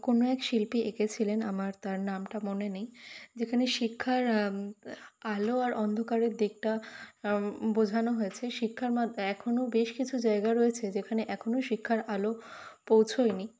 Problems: constant background noise